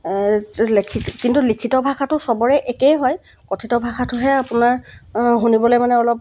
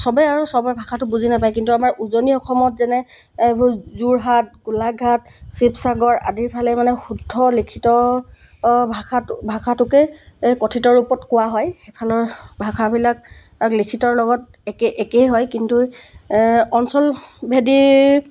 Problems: background sounds at intervals